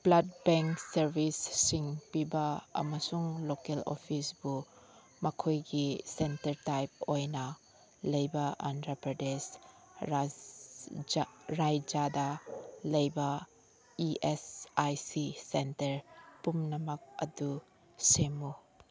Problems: background conversations at intervals